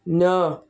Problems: none marked